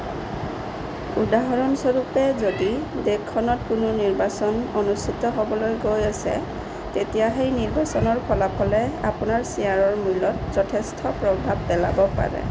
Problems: none marked